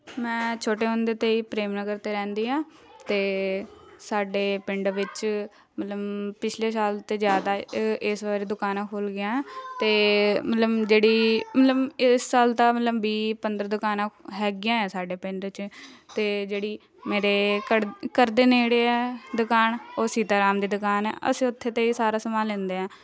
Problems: constant background noise